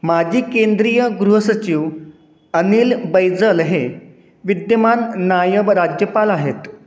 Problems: none marked